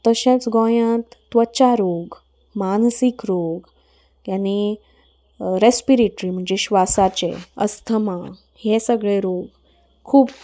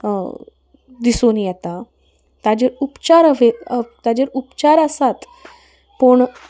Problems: background sounds at intervals